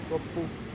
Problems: low volume